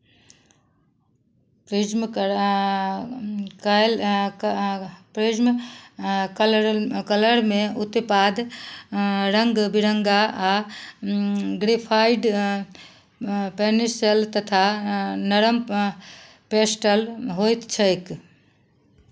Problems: none marked